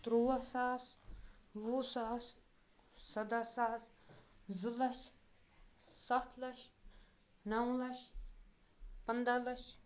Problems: background sounds at intervals